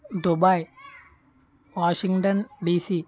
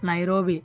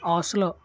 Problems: continuous background conversations